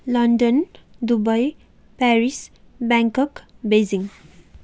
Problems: none marked